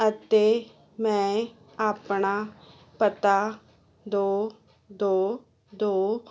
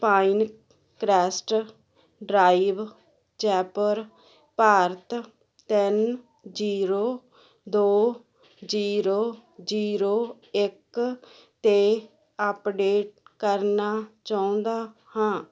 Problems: none marked